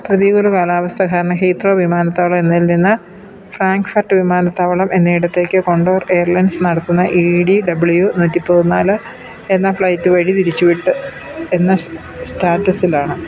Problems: none marked